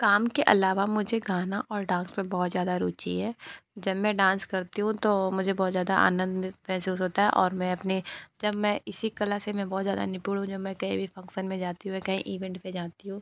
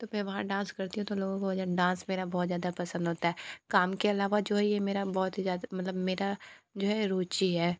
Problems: none marked